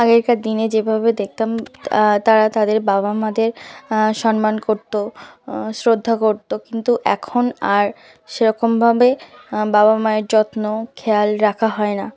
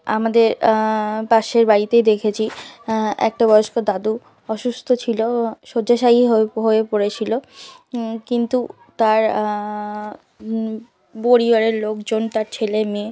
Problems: continuous background conversations